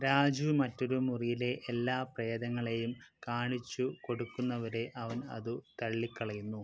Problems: low volume